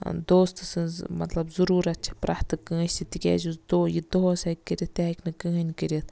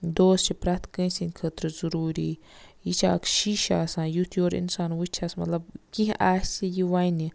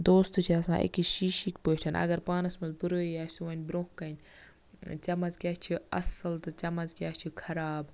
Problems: constant background noise